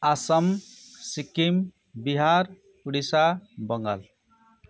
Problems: background conversations at intervals